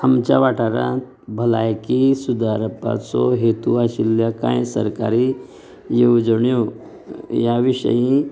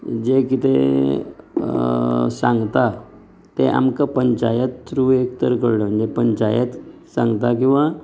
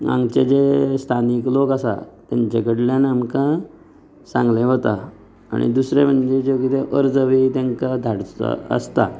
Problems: none marked